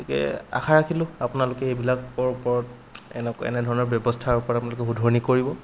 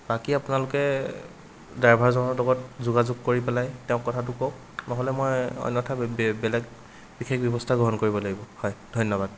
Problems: background sounds at intervals